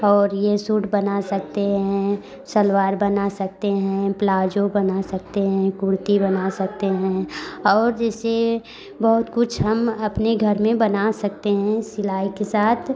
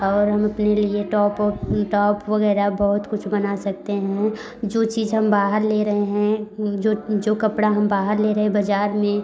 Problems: background conversations at intervals